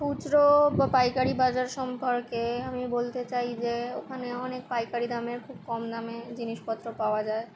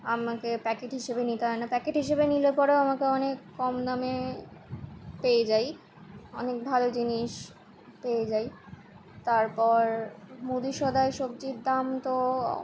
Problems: constant background noise, continuous background conversations